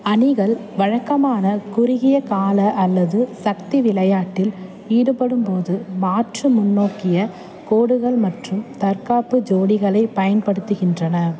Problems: constant background noise